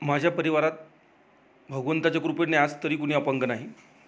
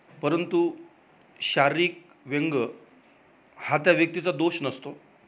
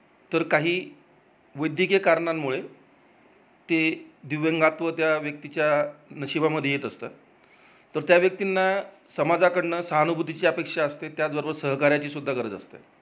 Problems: none marked